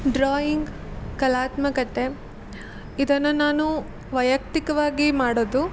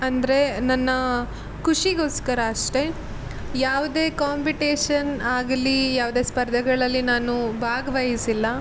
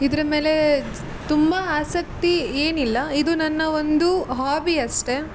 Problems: constant background noise